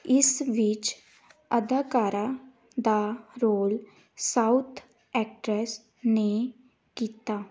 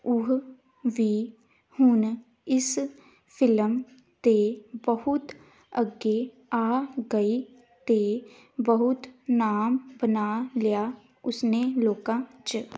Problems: none marked